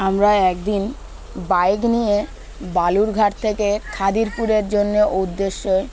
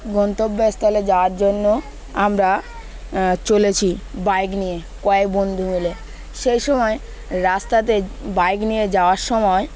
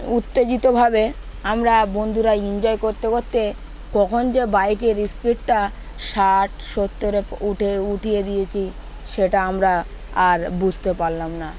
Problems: constant background noise, background conversations at intervals